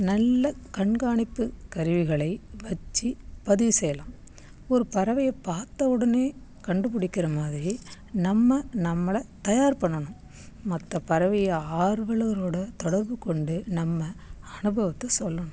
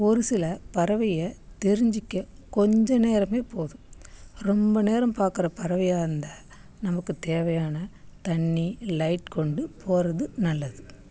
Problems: none marked